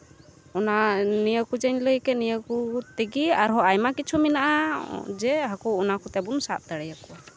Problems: constant background noise